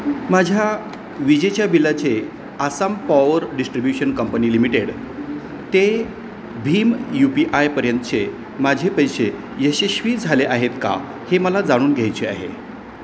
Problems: constant background noise